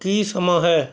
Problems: background conversations at intervals